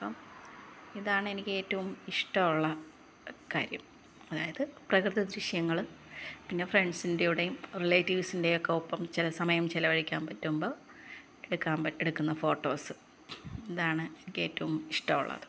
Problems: low volume